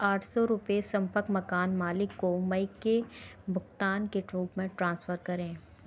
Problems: constant background noise